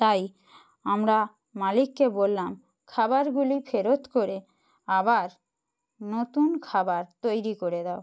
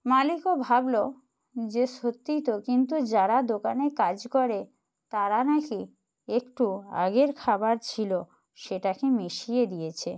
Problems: none marked